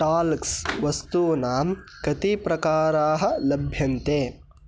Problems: none marked